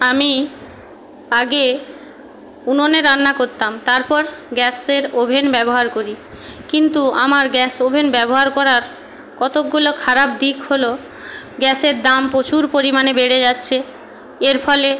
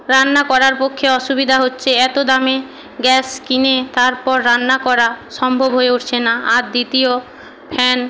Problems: background conversations at intervals